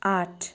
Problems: none marked